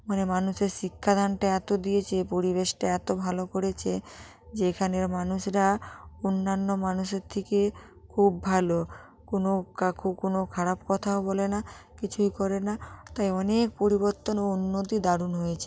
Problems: none marked